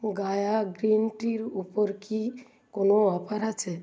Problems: none marked